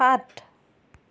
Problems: none marked